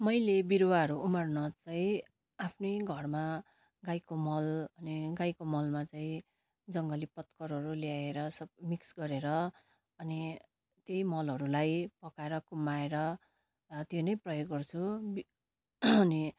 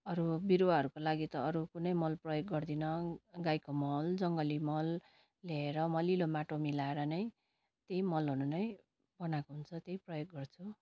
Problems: none marked